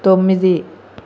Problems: constant background noise